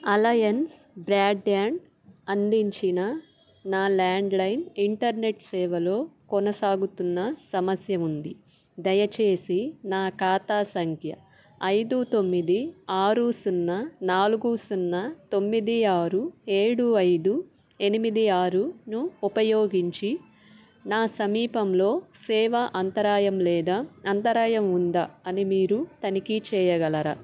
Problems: constant background noise